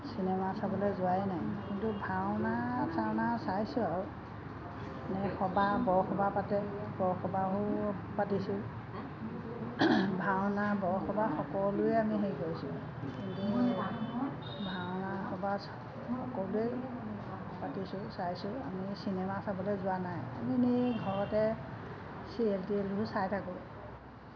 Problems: constant background noise